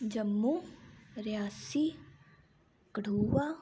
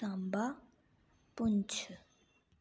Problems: low volume